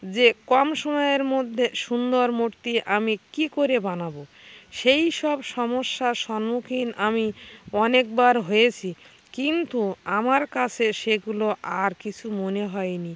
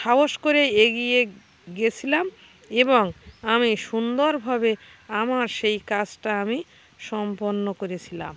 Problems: constant background noise